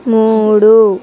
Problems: none marked